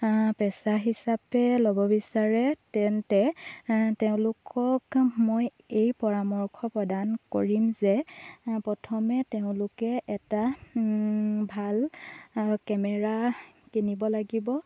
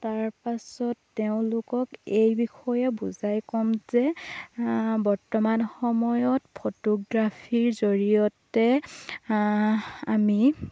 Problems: constant background noise